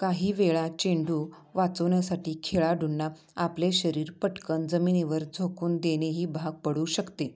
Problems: none marked